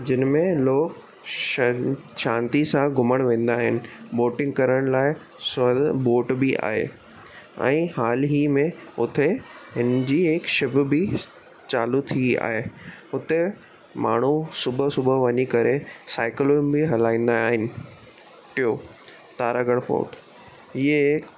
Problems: constant background noise